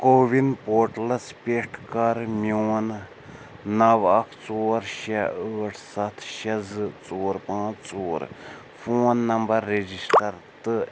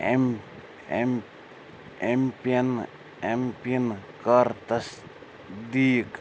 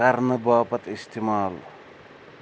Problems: none marked